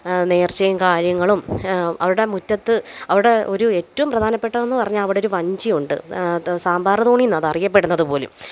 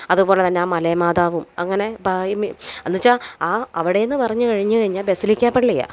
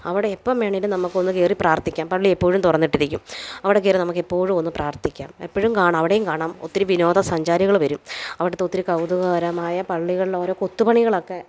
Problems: background sounds at intervals